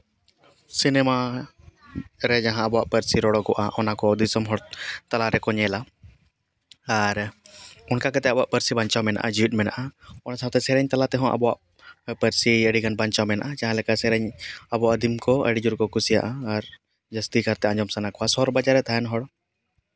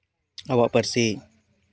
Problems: none marked